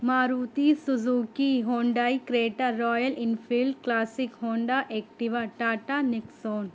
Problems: constant background noise